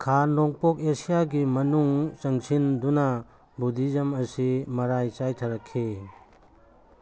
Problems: constant background noise